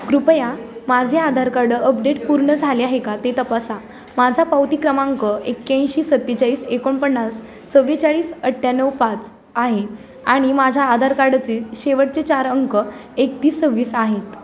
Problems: constant background noise